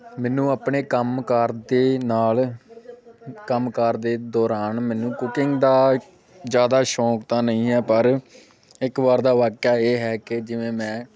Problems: none marked